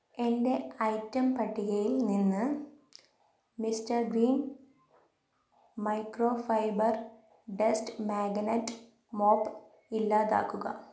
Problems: none marked